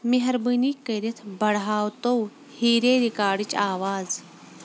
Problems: background sounds at intervals